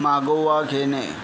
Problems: constant background noise